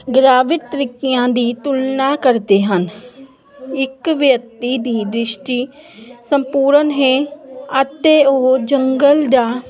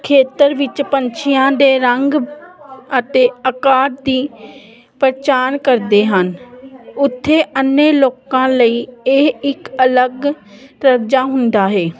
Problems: none marked